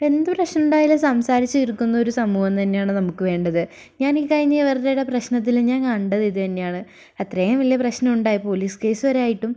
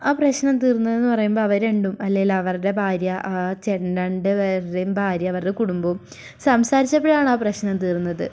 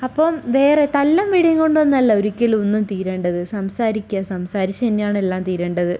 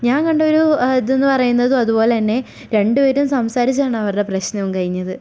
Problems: none marked